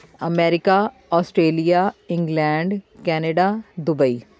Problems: continuous background conversations